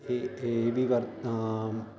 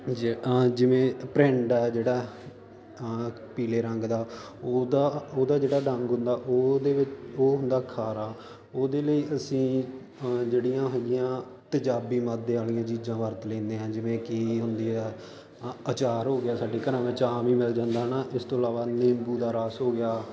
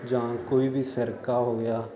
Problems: constant background noise